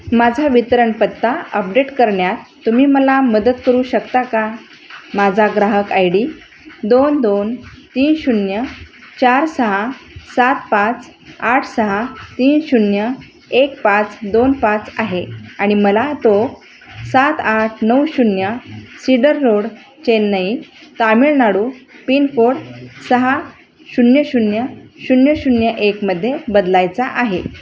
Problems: none marked